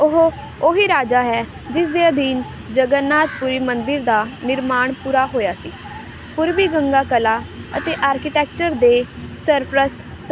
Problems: none marked